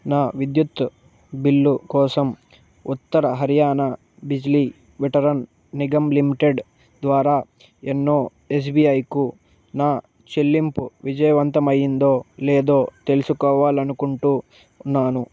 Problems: none marked